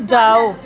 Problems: constant background noise